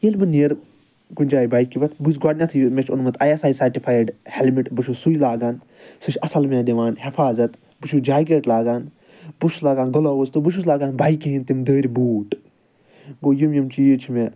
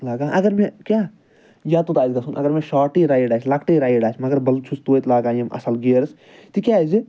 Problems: none marked